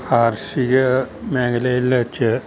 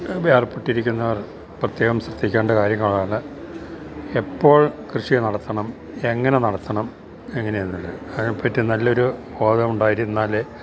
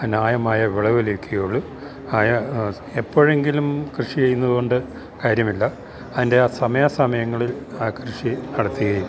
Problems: constant background noise